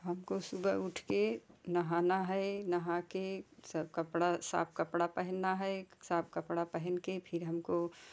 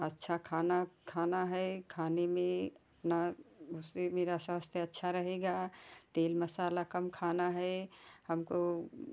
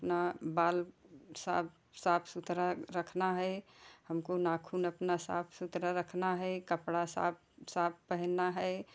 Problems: none marked